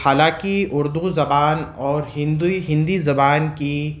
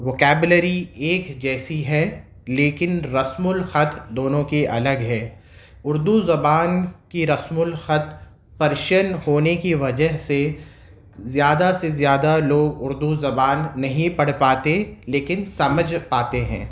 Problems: none marked